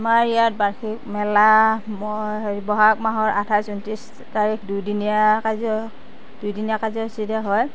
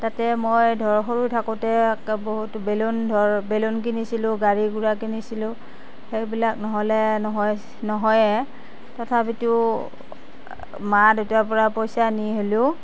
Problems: constant background noise